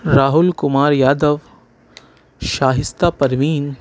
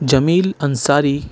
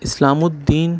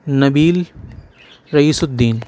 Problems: background sounds at intervals